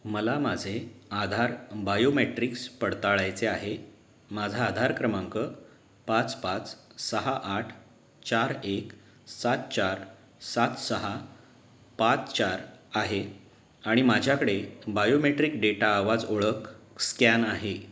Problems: none marked